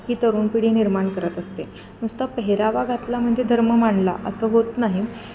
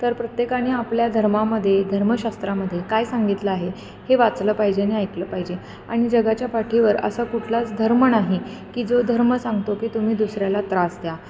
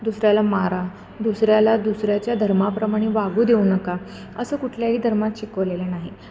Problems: none marked